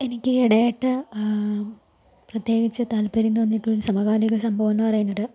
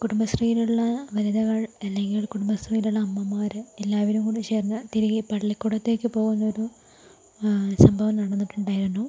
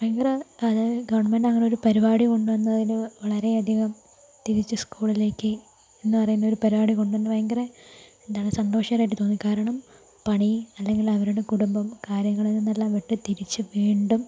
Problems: constant background noise, low volume